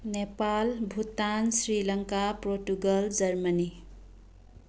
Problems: background sounds at intervals